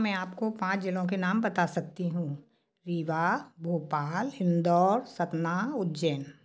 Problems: background sounds at intervals